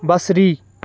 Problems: background sounds at intervals